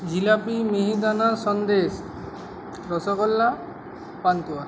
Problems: none marked